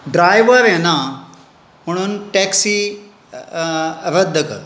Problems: constant background noise